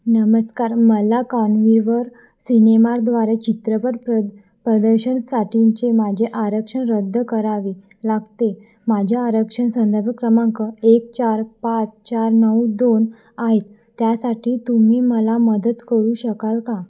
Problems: constant background noise, echo